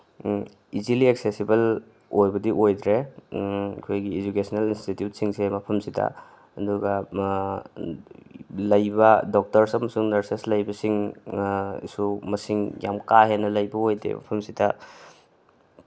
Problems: none marked